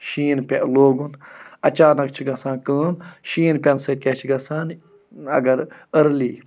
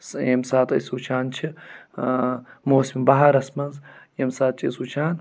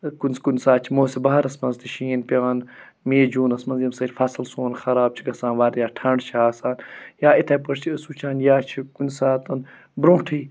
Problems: none marked